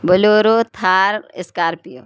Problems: none marked